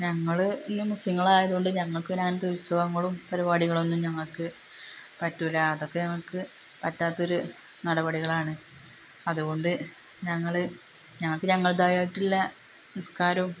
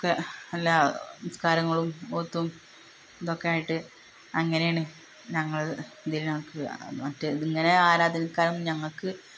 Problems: constant background noise